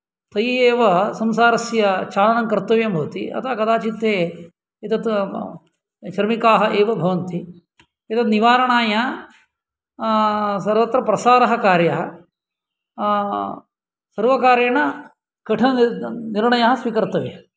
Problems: none marked